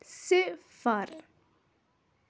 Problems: none marked